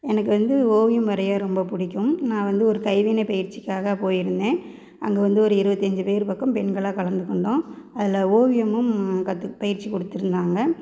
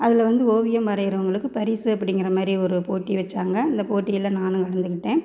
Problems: none marked